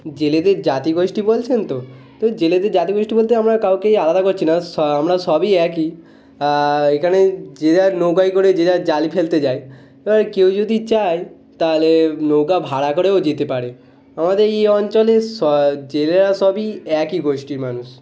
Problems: background conversations at intervals